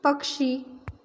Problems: none marked